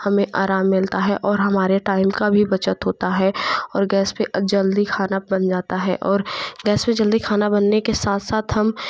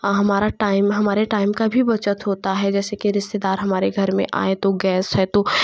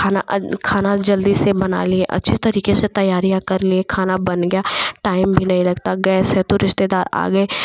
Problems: constant background noise